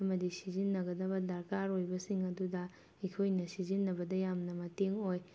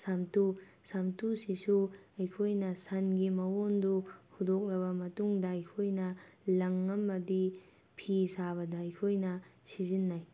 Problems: none marked